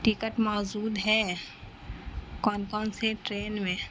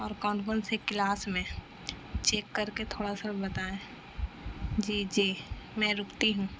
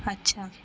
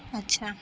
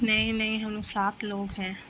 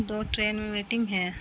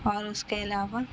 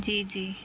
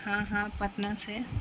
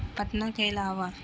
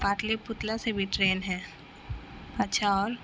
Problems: constant background noise